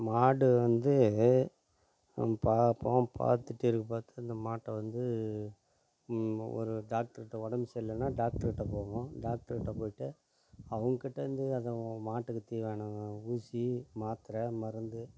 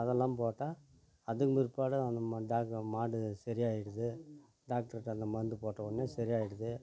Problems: low volume